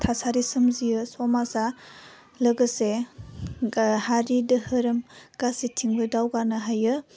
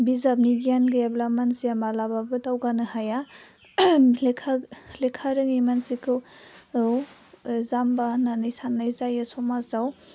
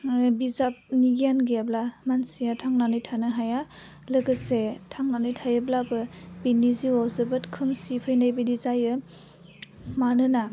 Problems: low volume